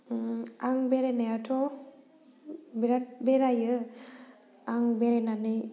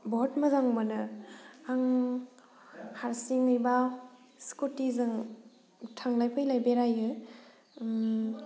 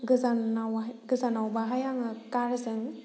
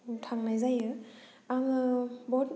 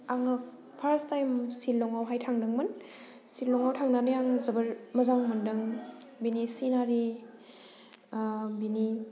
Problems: low volume